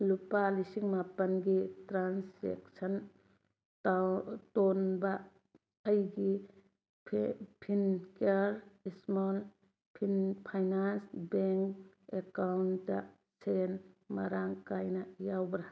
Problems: background sounds at intervals